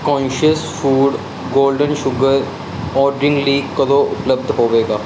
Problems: constant background noise